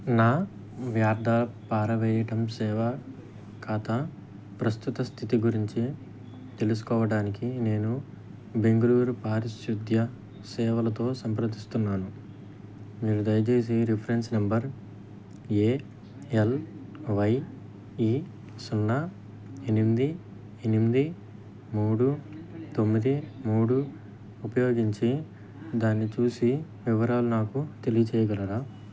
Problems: background sounds at intervals